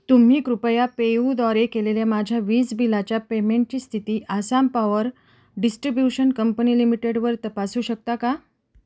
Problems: background sounds at intervals